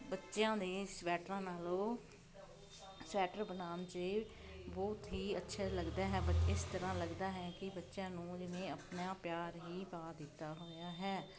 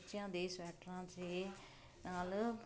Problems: none marked